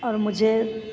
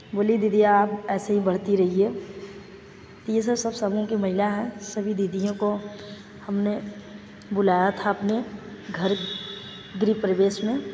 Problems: echo